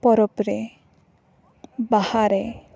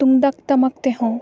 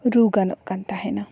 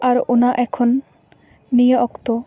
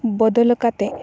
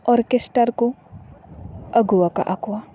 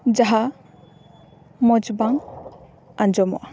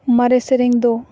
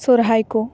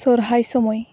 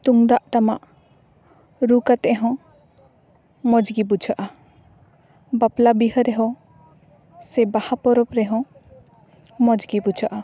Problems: background sounds at intervals, background conversations at intervals